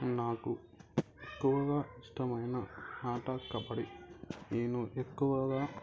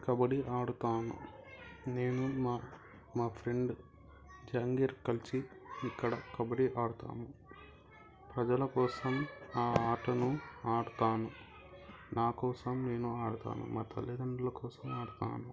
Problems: continuous background conversations